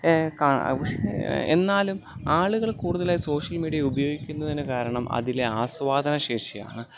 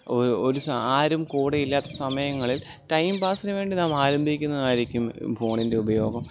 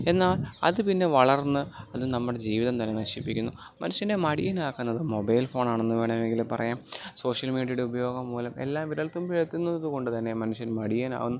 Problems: none marked